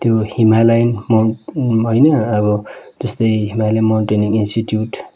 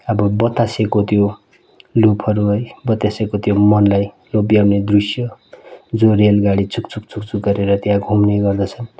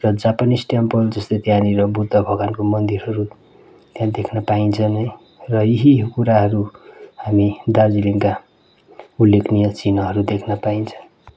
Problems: constant background noise